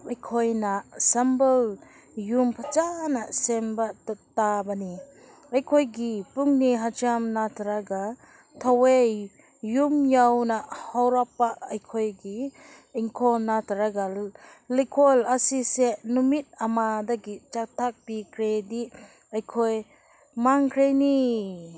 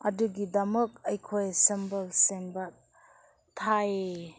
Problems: none marked